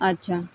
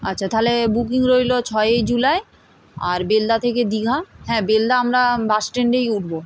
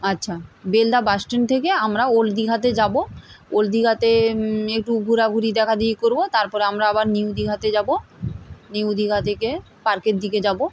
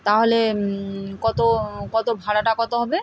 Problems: constant background noise